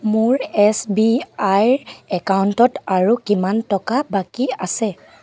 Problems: background sounds at intervals